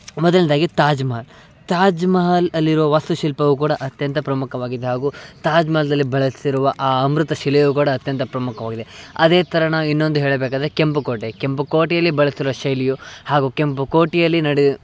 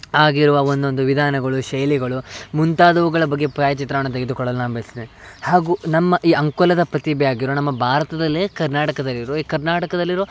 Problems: background sounds at intervals